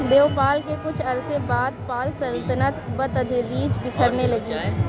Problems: constant background noise, background conversations at intervals